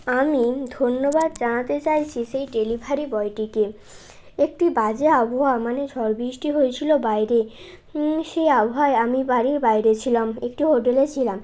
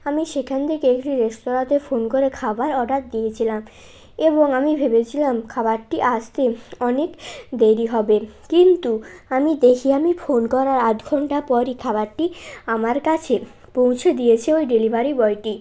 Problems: constant background noise